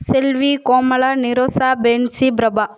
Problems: echo